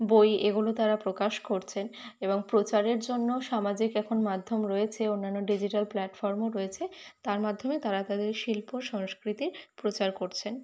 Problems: none marked